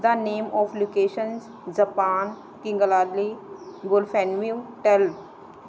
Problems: none marked